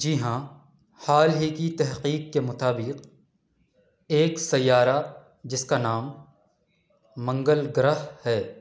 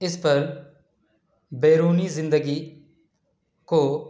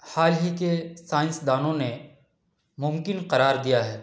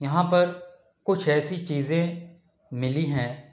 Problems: background conversations at intervals